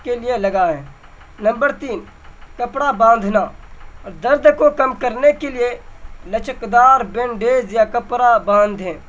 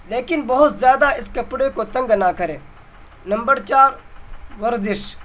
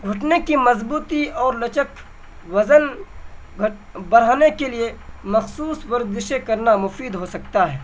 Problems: constant background noise